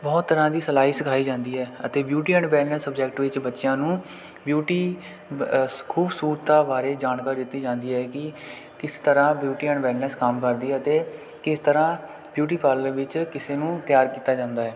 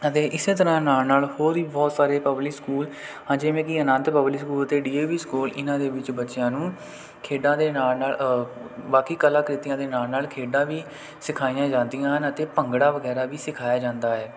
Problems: none marked